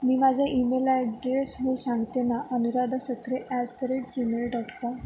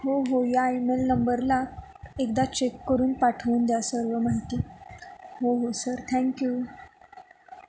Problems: none marked